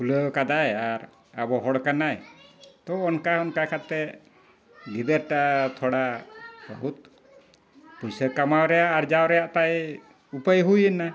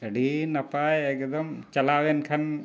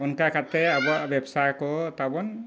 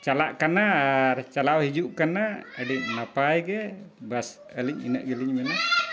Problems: background sounds at intervals, low volume